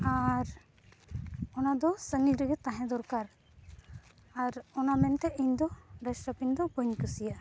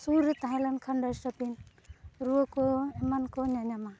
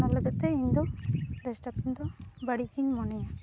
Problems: none marked